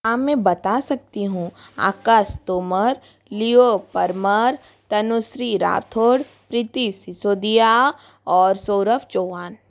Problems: constant background noise